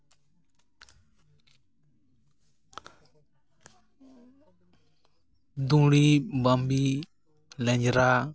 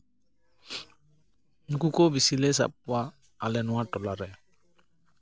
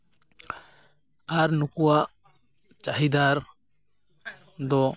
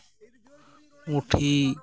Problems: background sounds at intervals, background conversations at intervals